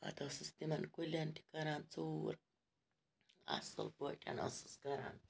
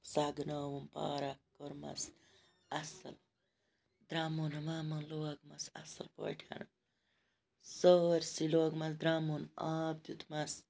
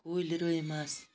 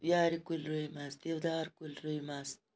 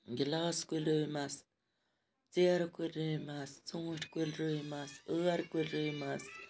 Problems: background sounds at intervals